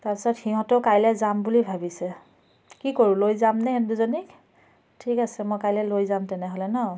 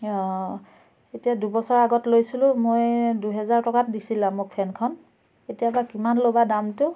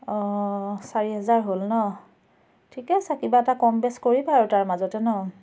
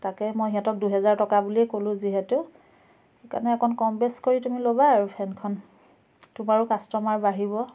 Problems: background sounds at intervals, background conversations at intervals